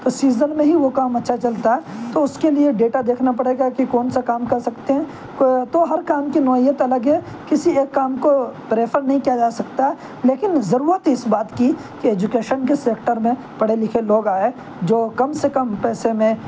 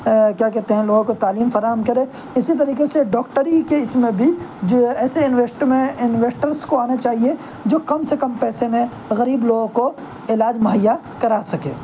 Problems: constant background noise